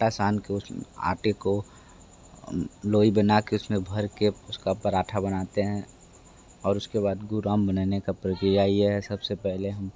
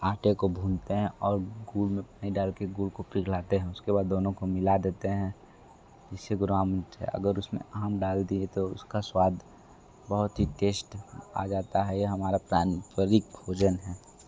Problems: none marked